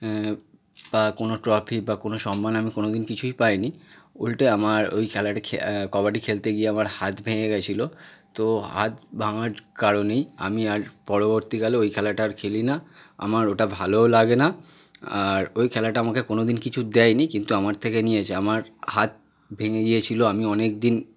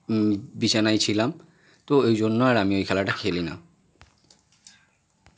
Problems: none marked